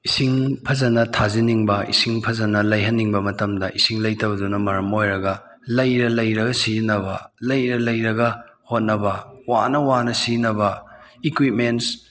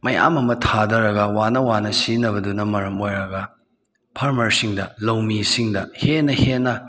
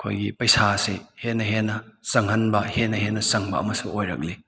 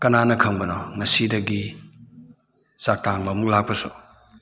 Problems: background conversations at intervals